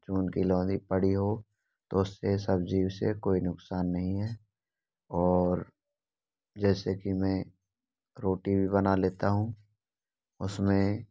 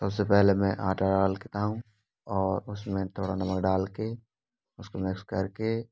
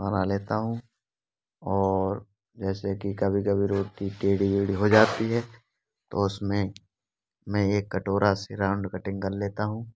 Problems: none marked